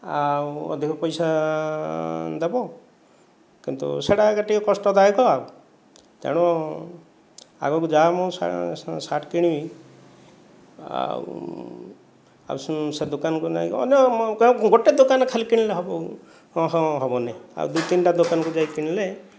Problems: background sounds at intervals